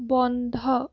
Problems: none marked